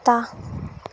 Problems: constant background noise